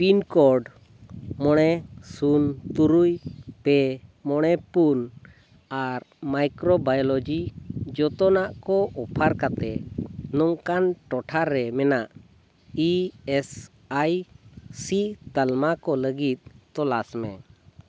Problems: background sounds at intervals